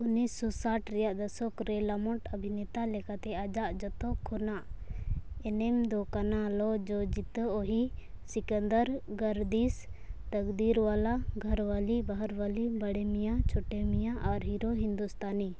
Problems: none marked